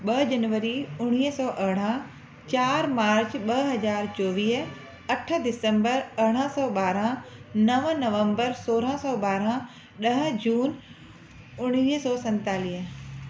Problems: constant background noise